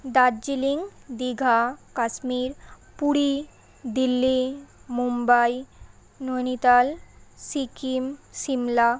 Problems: constant background noise